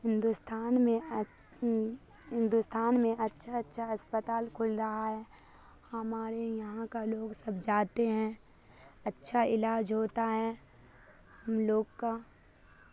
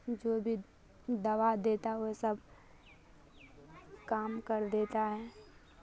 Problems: constant background noise